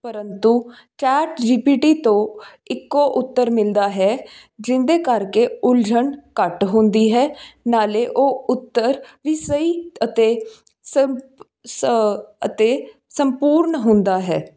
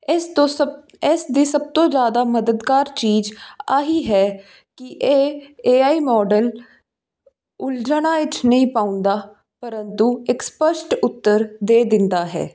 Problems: none marked